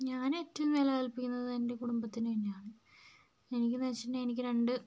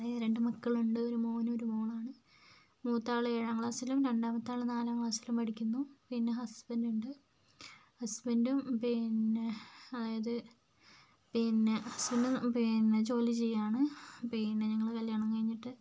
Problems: low volume